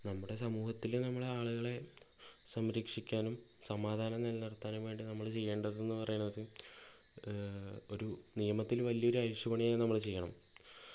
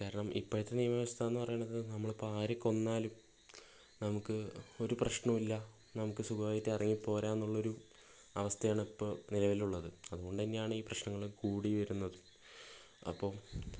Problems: low volume